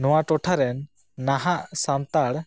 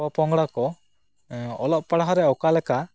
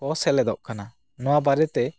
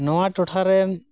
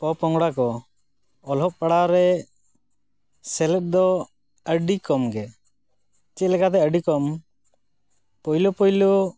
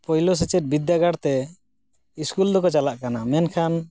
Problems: none marked